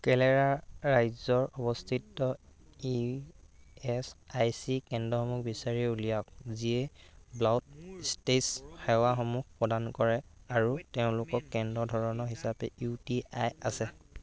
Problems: constant background noise